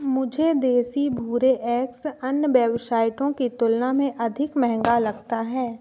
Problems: constant background noise